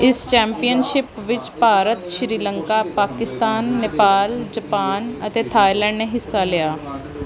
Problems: continuous background conversations